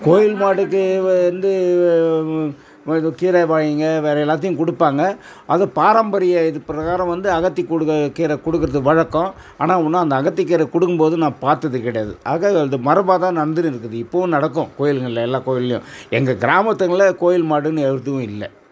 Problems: background sounds at intervals